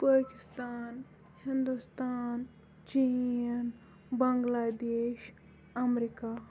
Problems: none marked